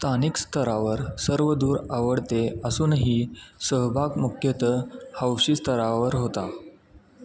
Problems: none marked